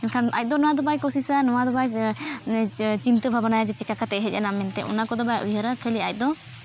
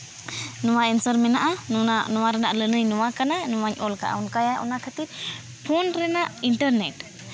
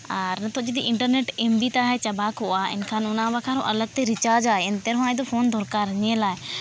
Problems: none marked